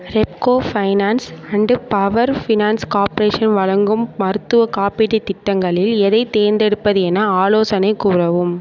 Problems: none marked